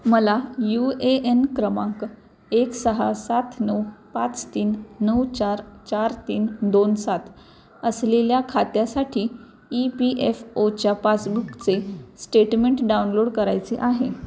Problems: none marked